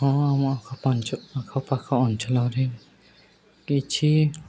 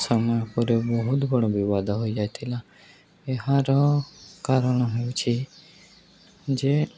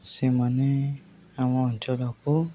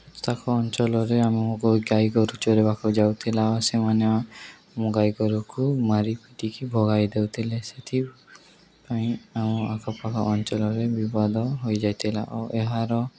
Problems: none marked